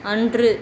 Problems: constant background noise